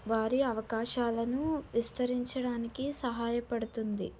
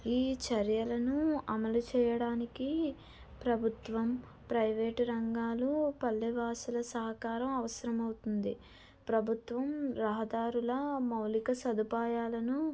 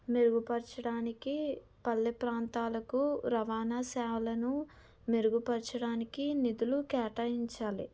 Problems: none marked